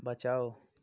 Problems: none marked